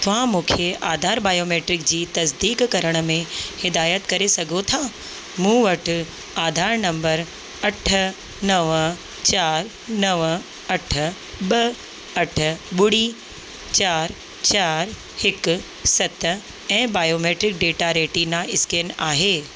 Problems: constant background noise, echo